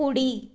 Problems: none marked